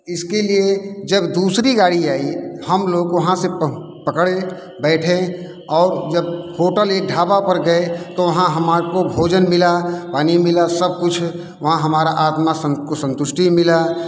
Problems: none marked